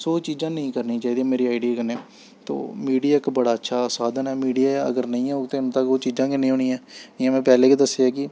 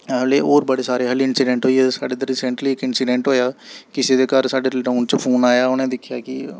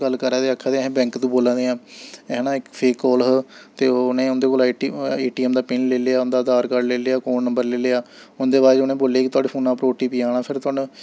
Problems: none marked